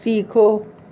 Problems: none marked